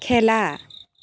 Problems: background sounds at intervals